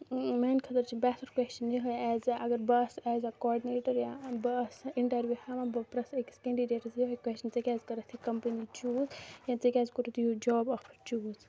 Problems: low volume